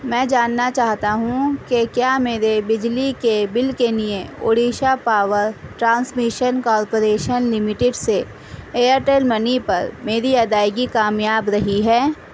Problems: constant background noise